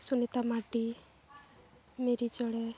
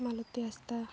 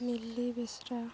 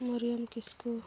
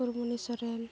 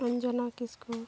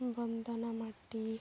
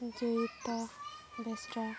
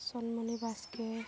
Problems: constant background noise, background conversations at intervals